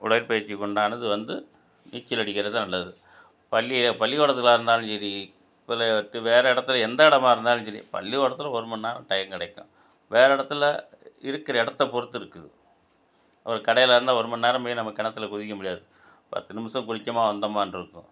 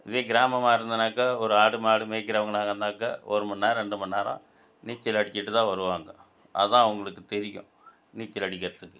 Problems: none marked